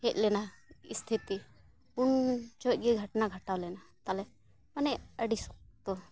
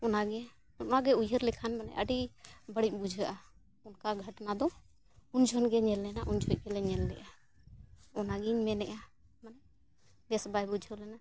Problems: background sounds at intervals